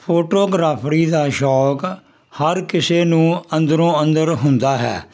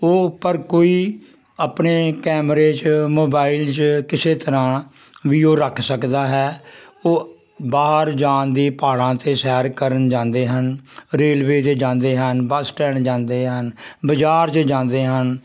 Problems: none marked